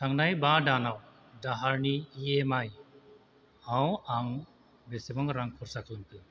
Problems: constant background noise